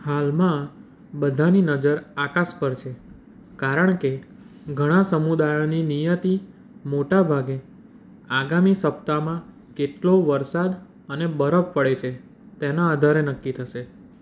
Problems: none marked